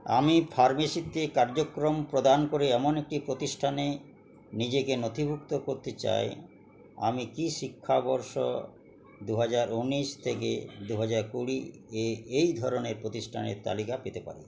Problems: none marked